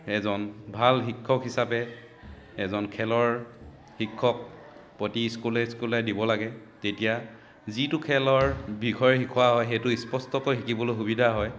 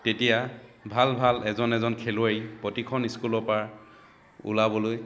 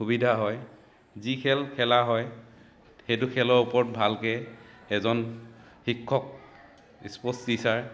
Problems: continuous background conversations